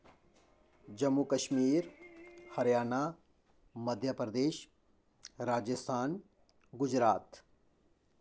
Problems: low volume